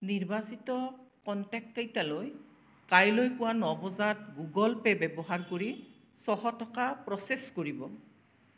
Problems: constant background noise